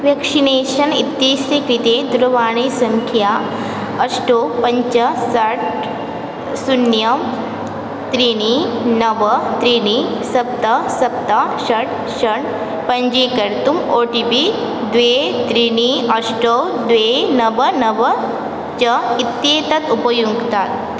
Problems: constant background noise